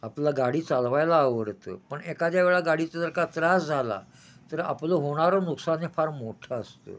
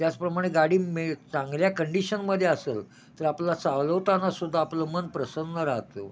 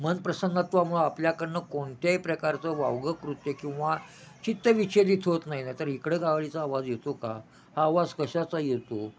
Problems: none marked